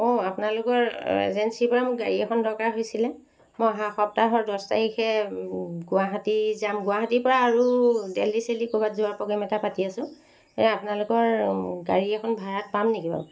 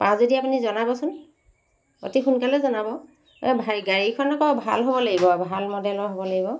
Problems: constant background noise